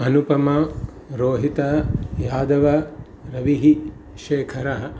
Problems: constant background noise